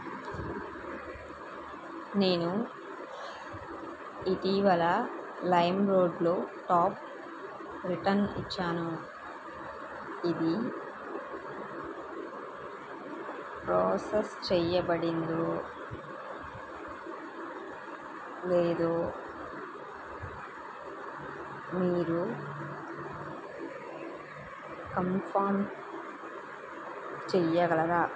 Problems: constant background noise